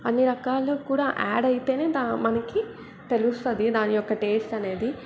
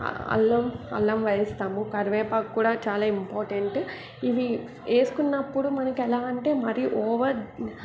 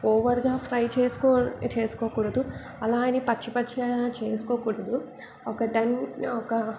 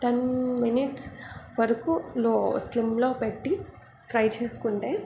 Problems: none marked